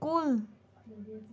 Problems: none marked